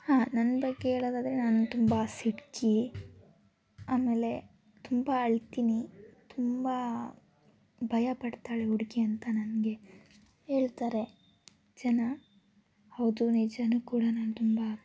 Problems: constant background noise, background conversations at intervals